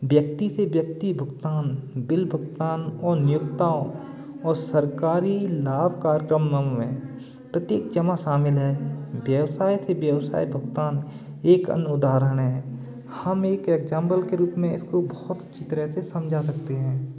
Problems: none marked